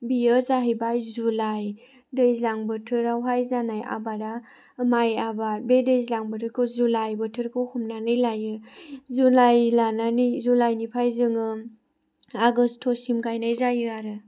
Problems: none marked